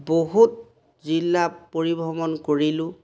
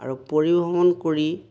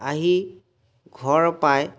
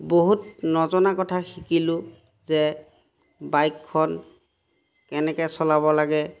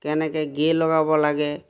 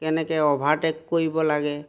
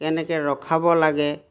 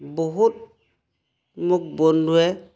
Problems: background sounds at intervals